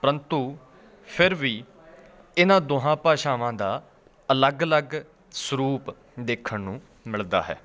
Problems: constant background noise, continuous background conversations